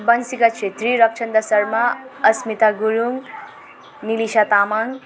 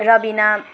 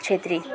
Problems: constant background noise